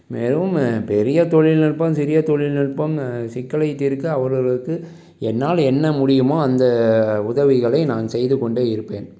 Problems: none marked